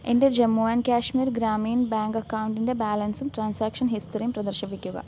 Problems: constant background noise